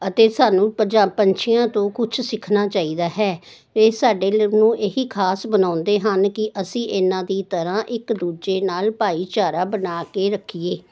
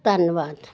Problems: none marked